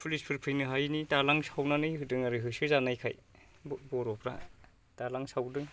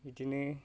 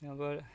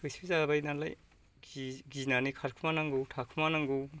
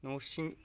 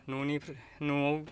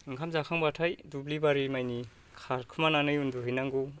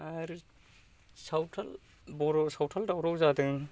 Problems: low volume